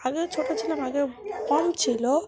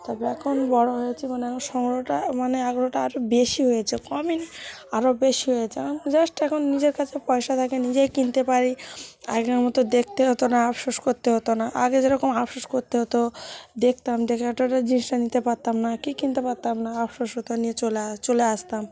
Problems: constant background noise